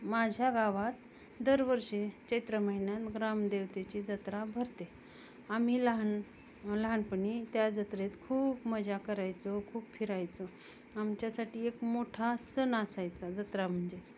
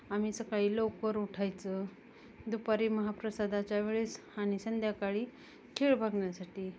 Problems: none marked